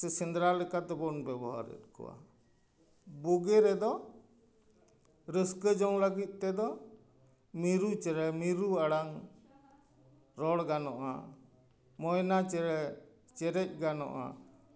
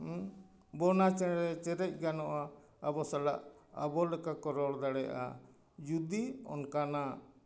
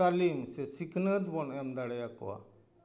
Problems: none marked